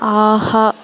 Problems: constant background noise